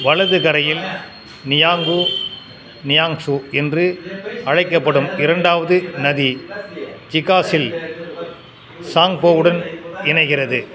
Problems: constant background noise